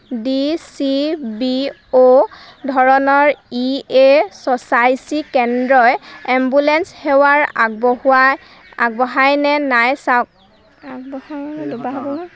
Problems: background conversations at intervals